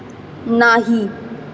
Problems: none marked